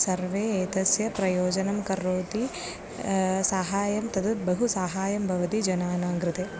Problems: background sounds at intervals